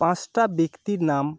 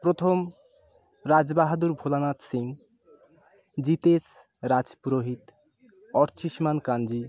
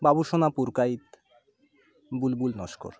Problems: none marked